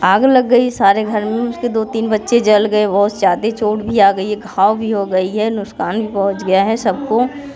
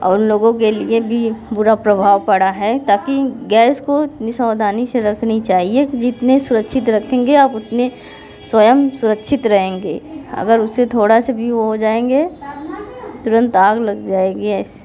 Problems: constant background noise, background conversations at intervals